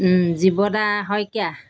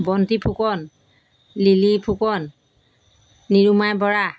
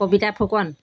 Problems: background sounds at intervals